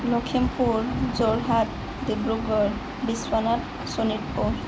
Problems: none marked